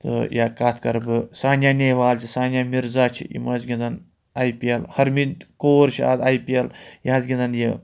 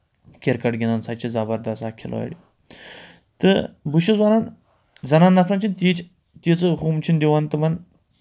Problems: none marked